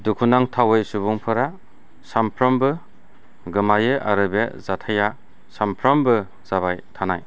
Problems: low volume